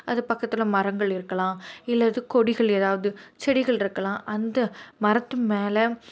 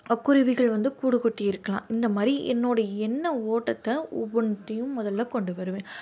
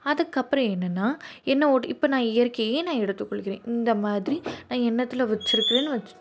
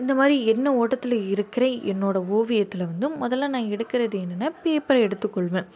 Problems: none marked